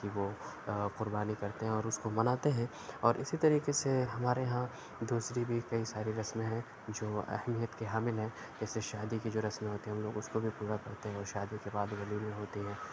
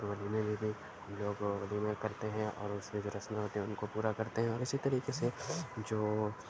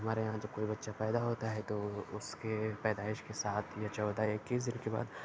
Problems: none marked